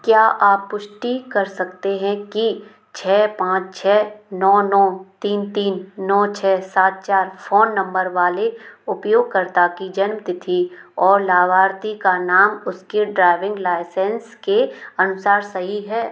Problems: none marked